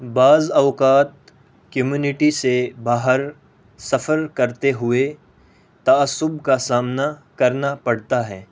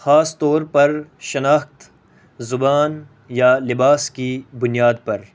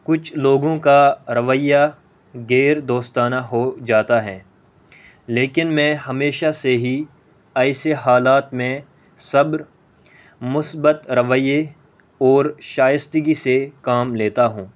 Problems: none marked